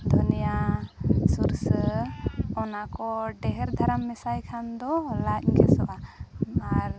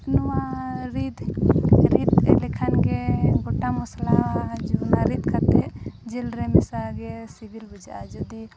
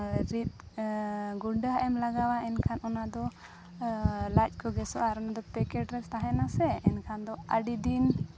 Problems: background sounds at intervals, background conversations at intervals